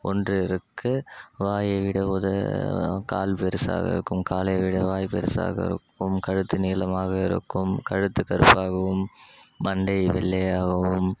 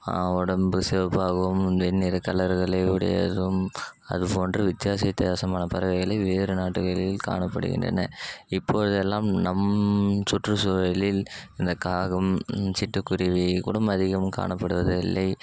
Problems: constant background noise